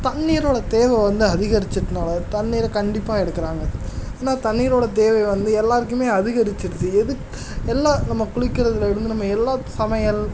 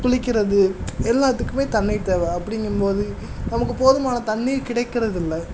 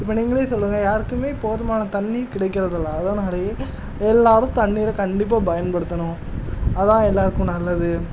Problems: constant background noise, background conversations at intervals